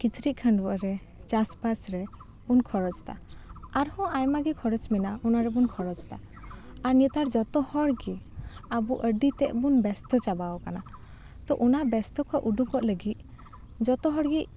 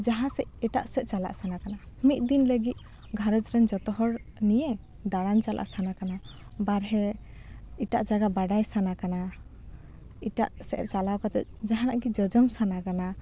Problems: none marked